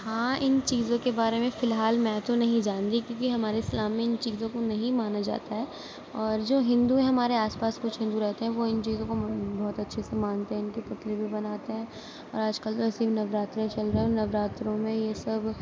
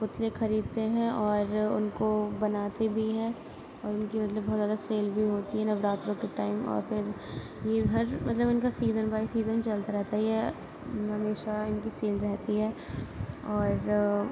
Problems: none marked